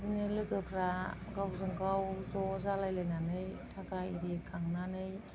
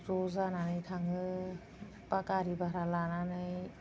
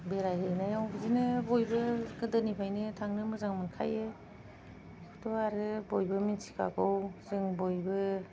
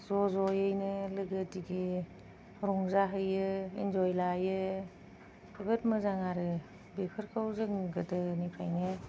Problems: none marked